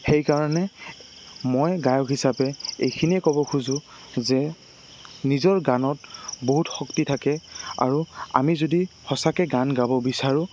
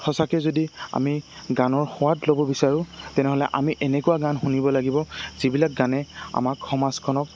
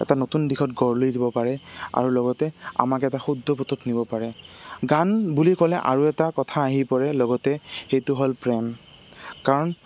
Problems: constant background noise